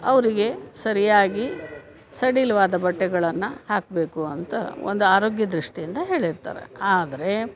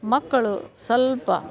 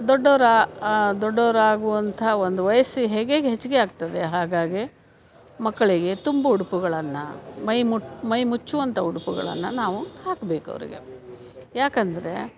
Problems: none marked